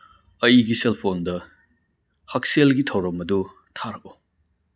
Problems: none marked